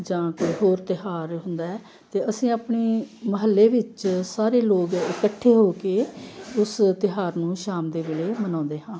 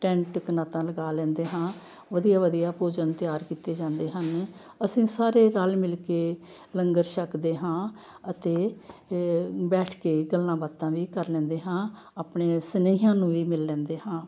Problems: none marked